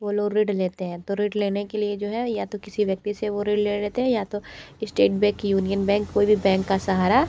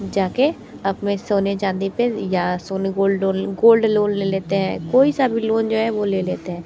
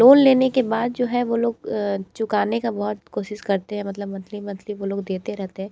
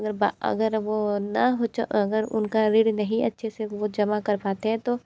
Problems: constant background noise